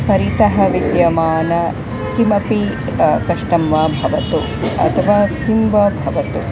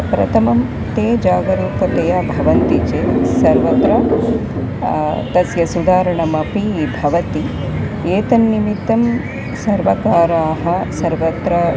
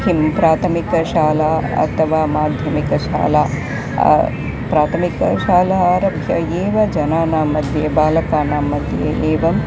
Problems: constant background noise